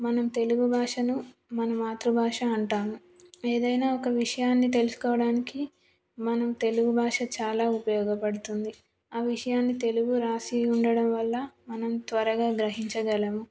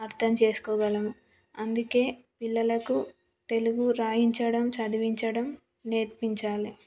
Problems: none marked